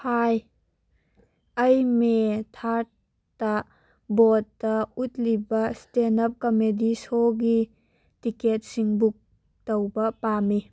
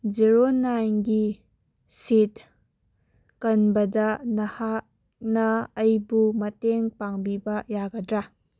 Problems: none marked